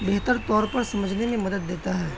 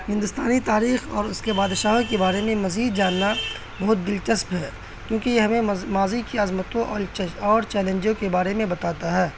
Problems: constant background noise